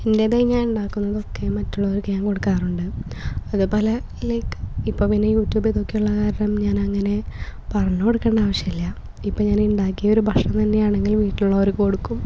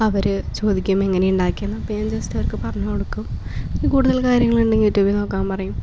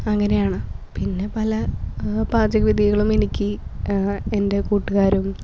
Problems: background sounds at intervals